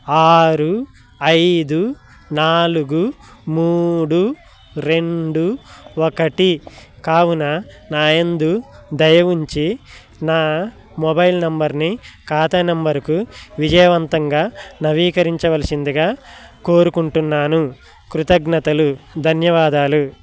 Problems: continuous background conversations